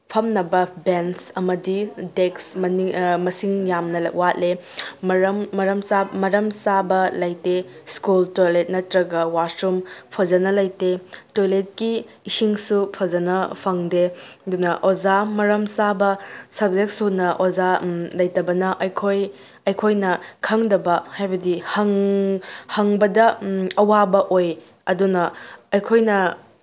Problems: none marked